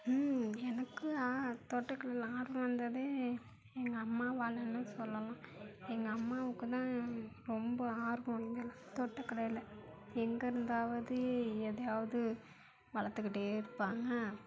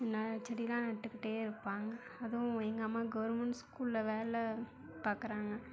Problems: constant background noise, low volume